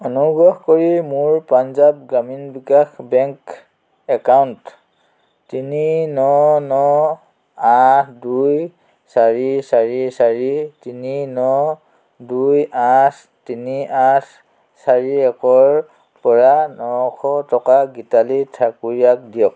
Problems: constant background noise